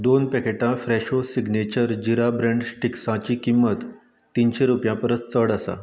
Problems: none marked